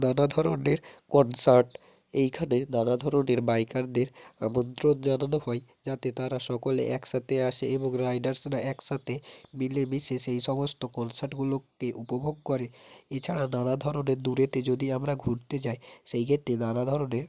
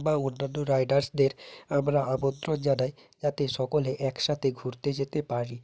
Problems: constant background noise